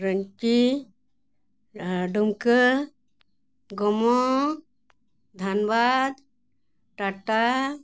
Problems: none marked